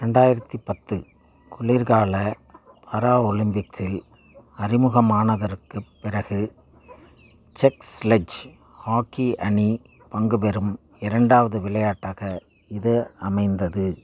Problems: none marked